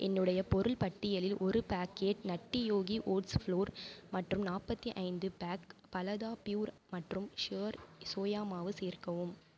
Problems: none marked